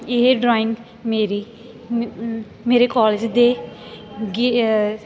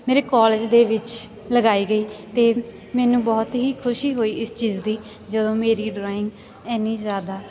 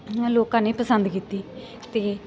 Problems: none marked